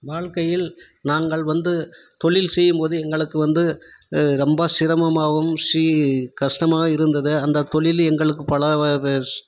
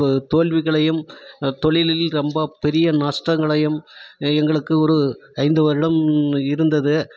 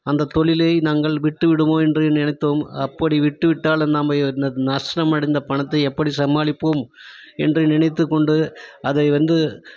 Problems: none marked